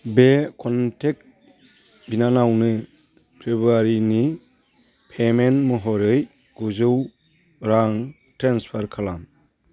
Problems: none marked